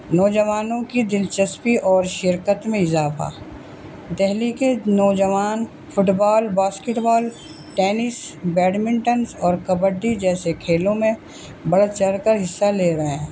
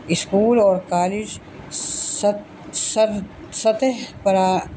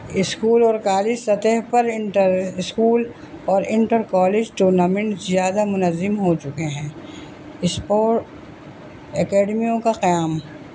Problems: constant background noise